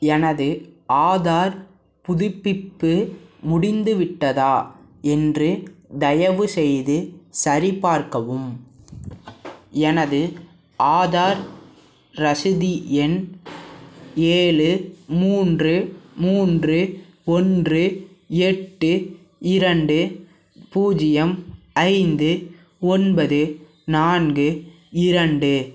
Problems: background sounds at intervals